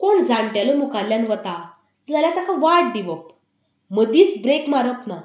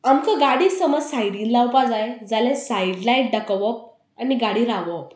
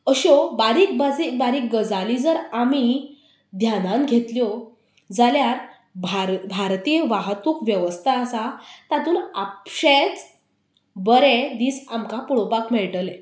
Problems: none marked